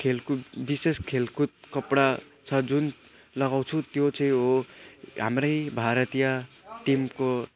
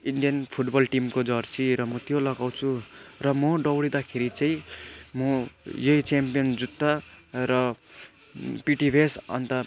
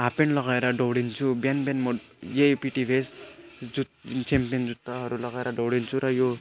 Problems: background sounds at intervals